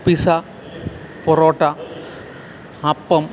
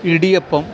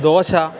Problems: none marked